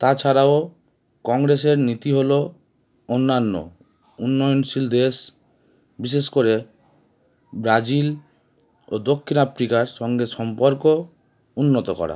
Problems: none marked